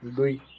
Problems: none marked